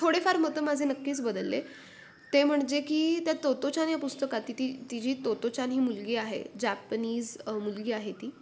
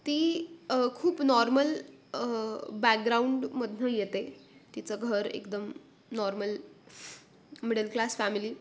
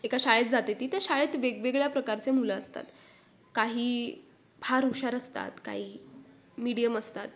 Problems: background sounds at intervals